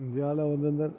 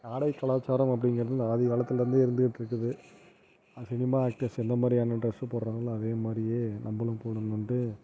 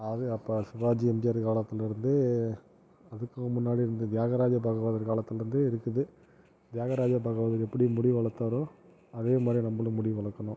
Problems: low volume